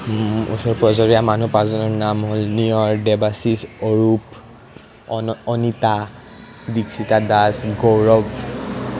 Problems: none marked